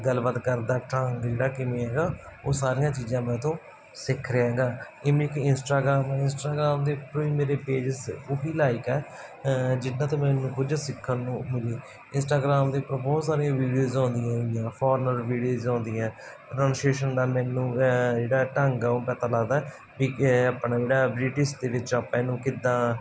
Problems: none marked